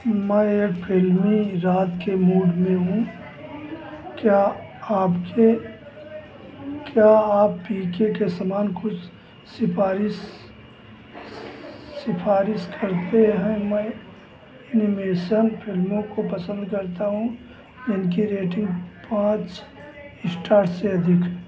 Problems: constant background noise, background conversations at intervals